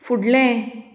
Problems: none marked